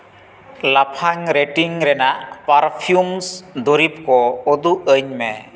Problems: constant background noise, background conversations at intervals, echo